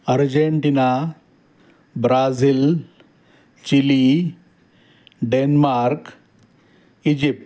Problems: background sounds at intervals